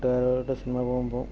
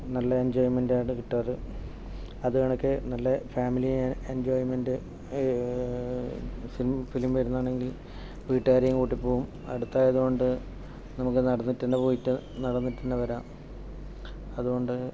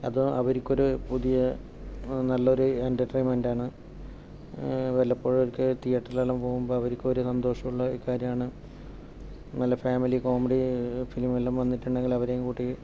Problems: background sounds at intervals, low volume